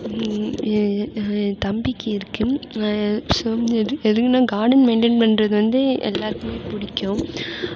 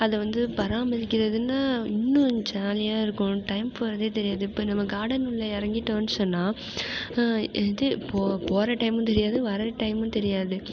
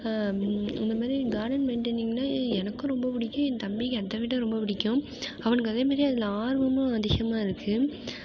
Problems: constant background noise